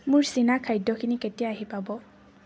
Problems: none marked